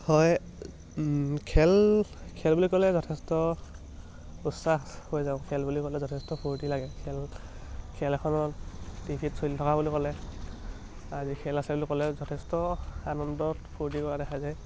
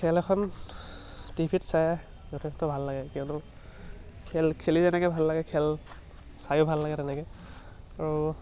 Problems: none marked